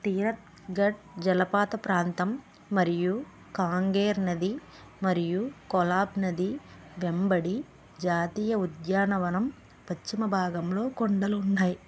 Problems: none marked